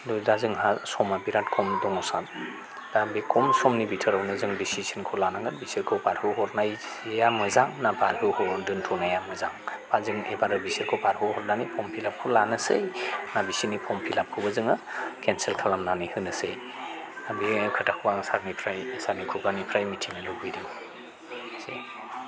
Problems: low volume